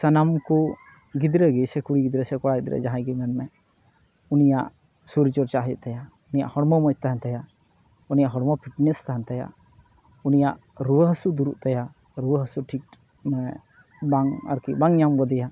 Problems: constant background noise, background conversations at intervals